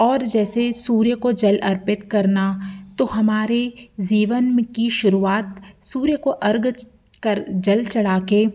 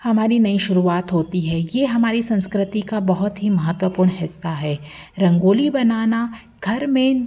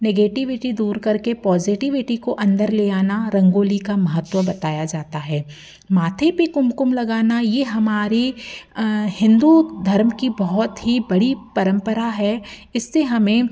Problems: none marked